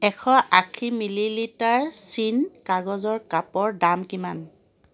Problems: constant background noise